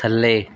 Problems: none marked